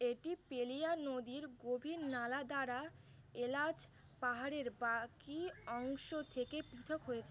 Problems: constant background noise